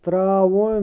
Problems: constant background noise